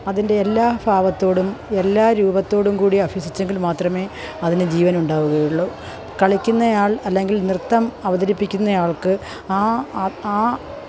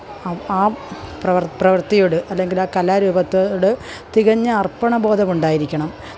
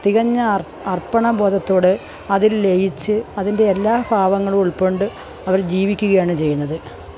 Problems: continuous background conversations